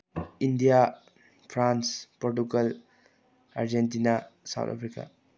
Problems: low volume